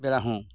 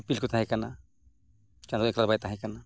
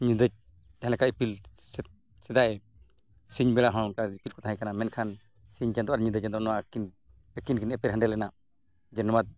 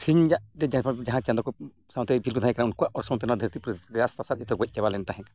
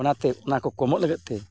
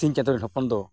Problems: background sounds at intervals